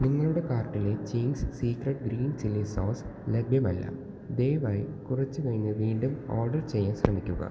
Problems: constant background noise, low volume